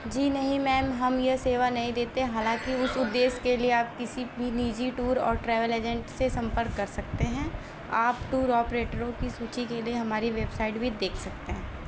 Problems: constant background noise